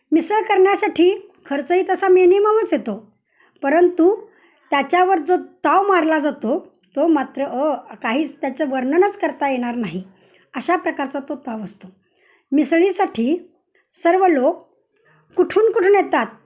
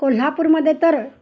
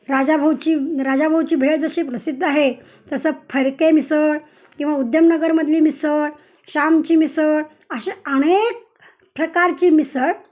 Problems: none marked